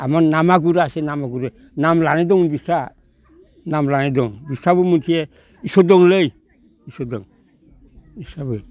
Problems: none marked